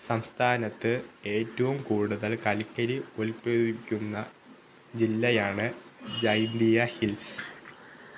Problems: none marked